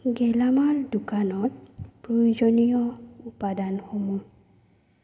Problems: low volume